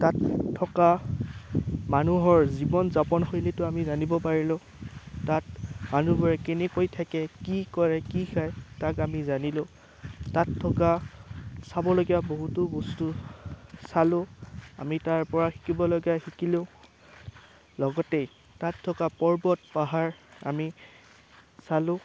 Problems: none marked